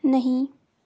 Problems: none marked